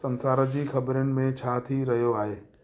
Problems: background sounds at intervals